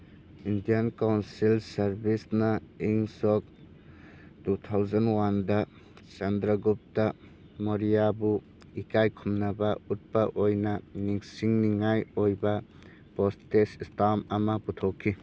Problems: background sounds at intervals